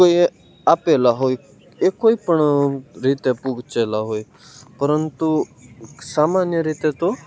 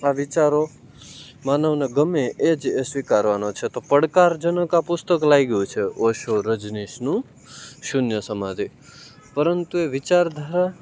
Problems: none marked